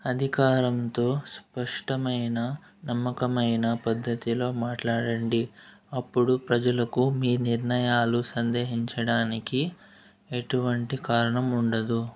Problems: background sounds at intervals